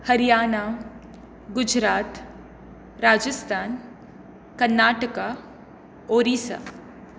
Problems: constant background noise